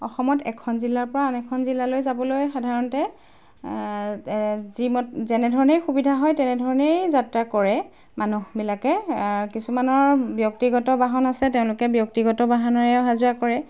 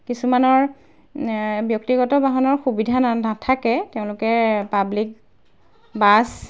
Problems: background sounds at intervals